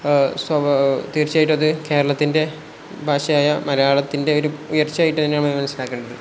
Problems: none marked